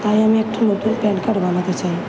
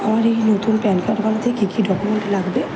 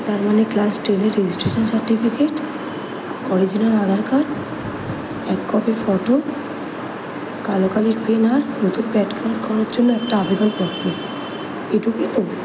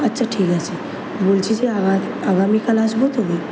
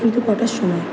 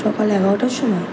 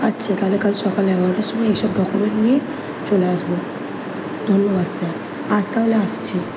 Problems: constant background noise